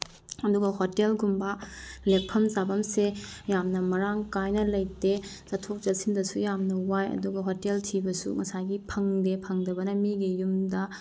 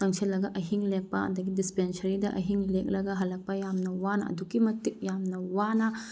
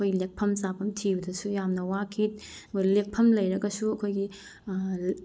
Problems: none marked